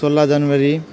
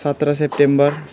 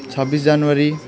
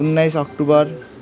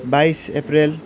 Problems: background sounds at intervals, continuous background conversations